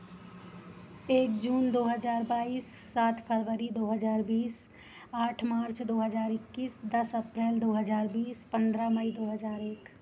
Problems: none marked